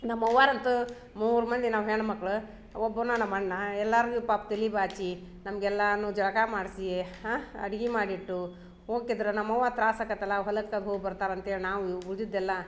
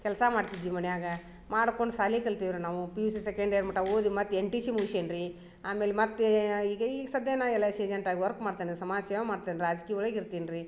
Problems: none marked